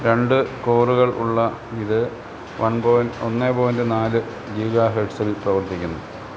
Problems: constant background noise